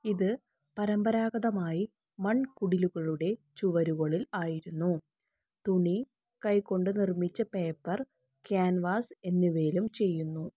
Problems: none marked